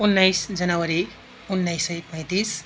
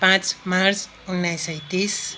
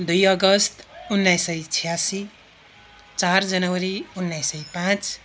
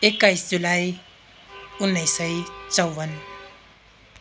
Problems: constant background noise, continuous background conversations